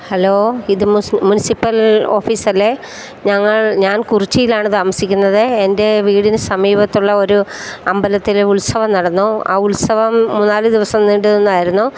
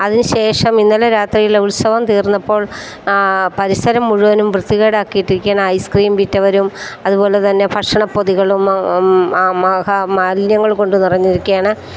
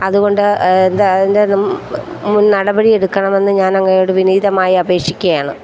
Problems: constant background noise